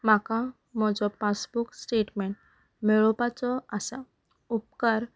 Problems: background sounds at intervals